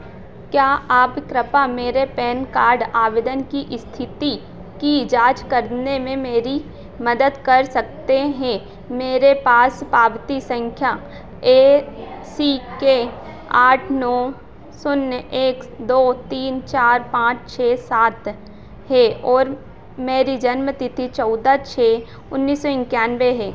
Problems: none marked